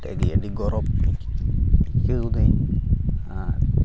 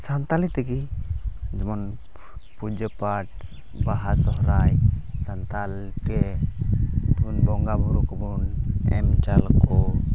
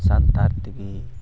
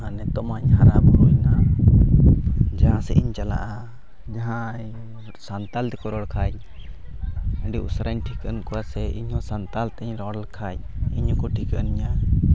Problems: constant background noise, low volume